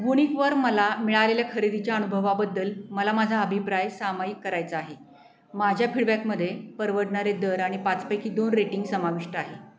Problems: constant background noise, background conversations at intervals